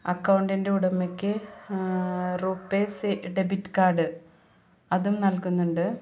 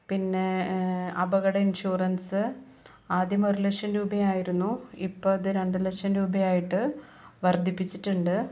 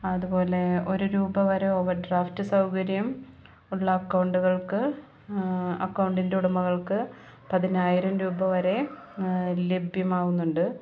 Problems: low volume